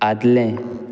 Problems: background sounds at intervals